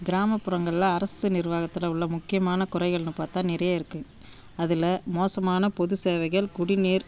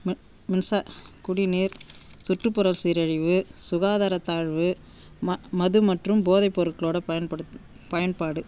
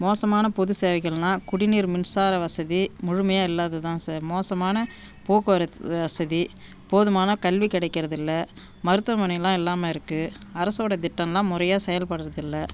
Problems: background sounds at intervals